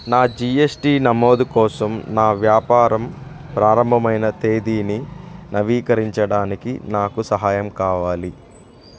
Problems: background sounds at intervals